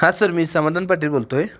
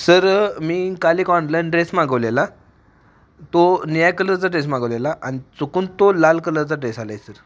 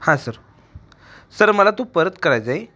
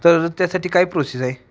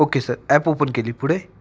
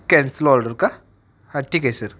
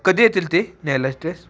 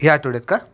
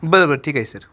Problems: background sounds at intervals, background conversations at intervals